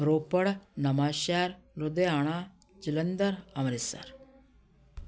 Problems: none marked